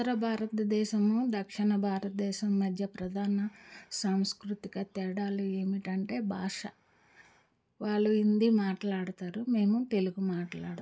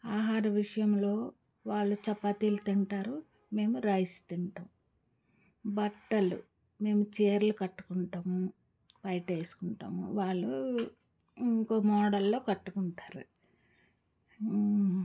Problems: background conversations at intervals